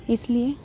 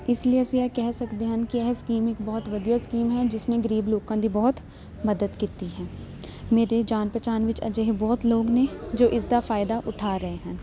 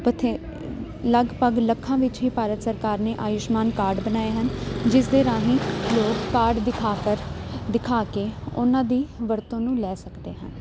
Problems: constant background noise